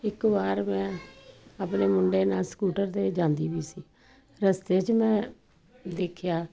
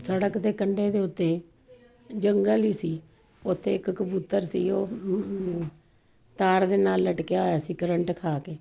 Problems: none marked